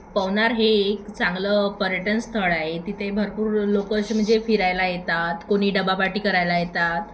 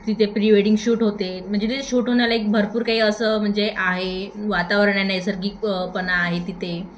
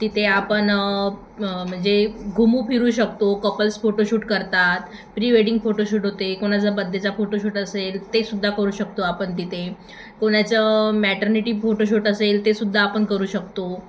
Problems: constant background noise, background conversations at intervals, echo